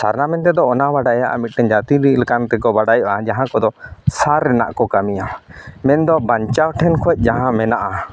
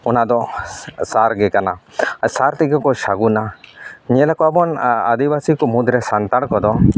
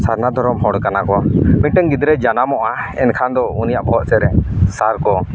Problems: none marked